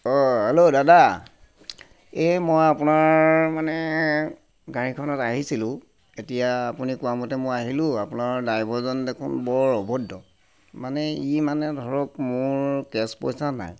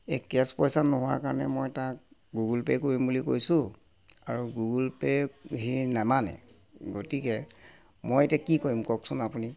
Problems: constant background noise